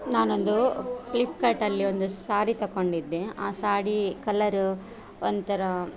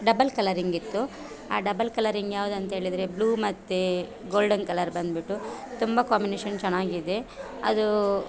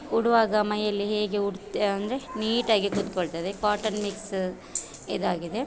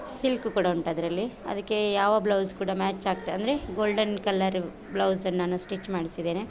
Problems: none marked